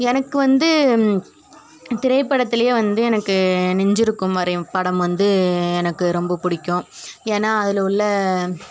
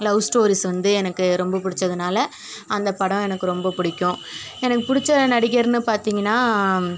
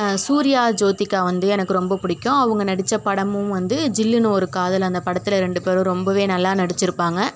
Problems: none marked